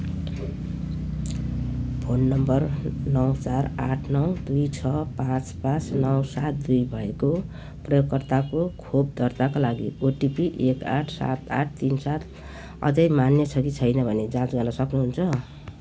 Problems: background sounds at intervals